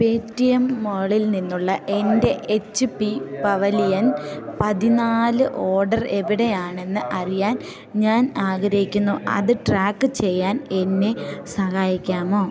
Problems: none marked